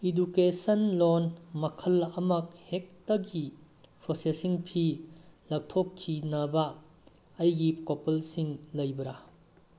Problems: constant background noise